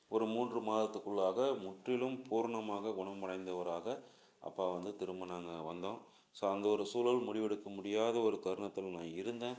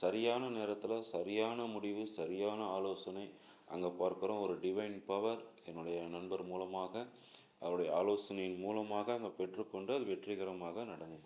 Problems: low volume